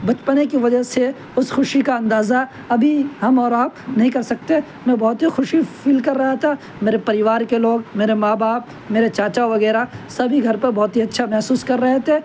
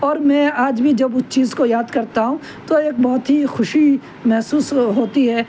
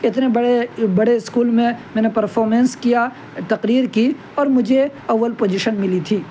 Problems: constant background noise